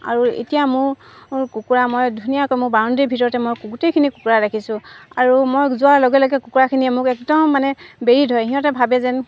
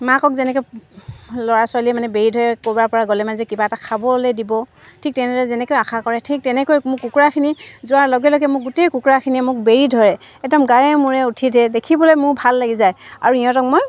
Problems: constant background noise